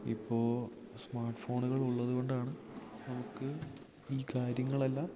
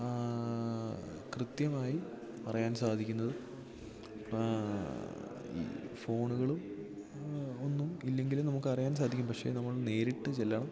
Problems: background sounds at intervals, low volume